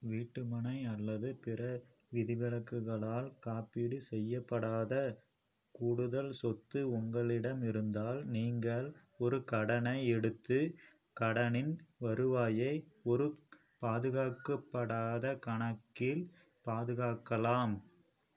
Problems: low volume